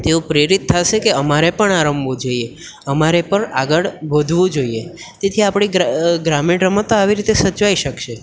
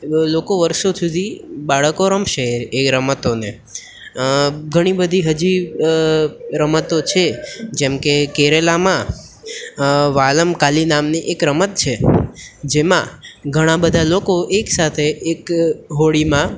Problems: none marked